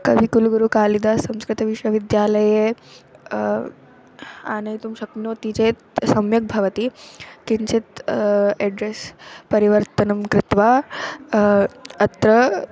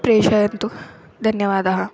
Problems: constant background noise